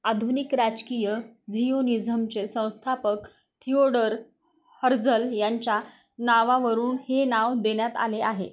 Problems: none marked